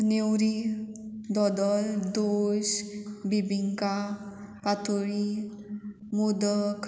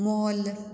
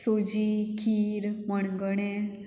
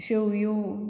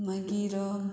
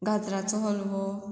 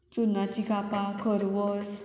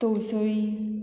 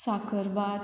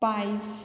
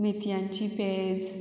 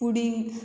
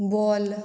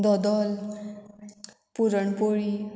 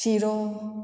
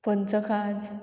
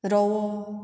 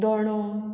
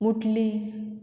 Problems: background sounds at intervals